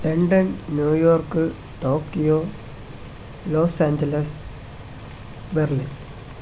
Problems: constant background noise